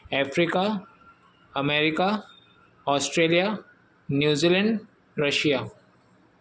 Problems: none marked